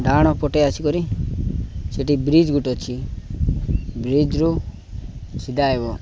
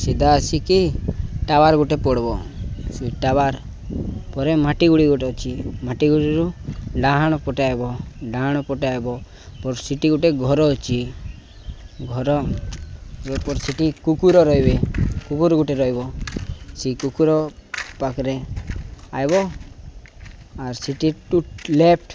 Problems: background sounds at intervals